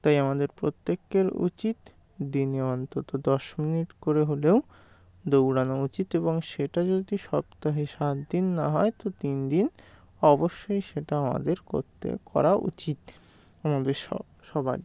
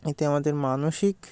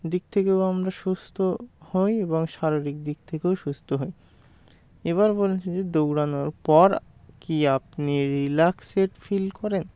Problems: constant background noise